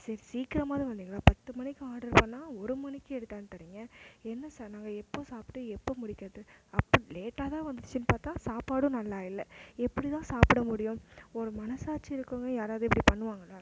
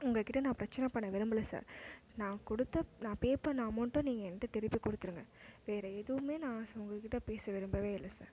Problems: constant background noise